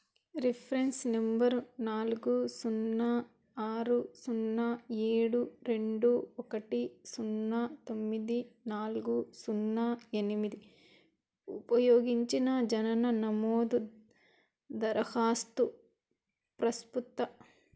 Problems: background sounds at intervals